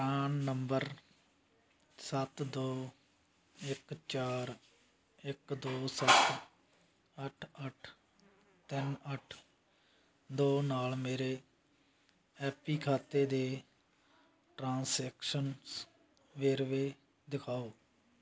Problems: constant background noise